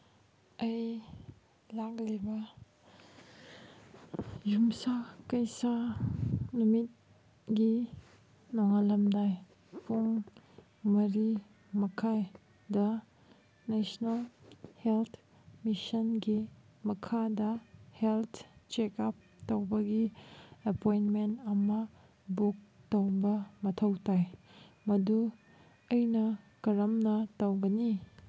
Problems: background sounds at intervals